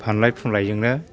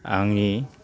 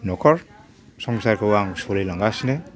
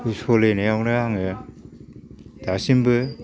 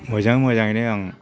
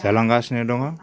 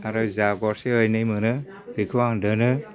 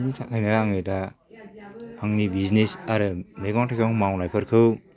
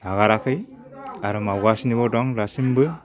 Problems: low volume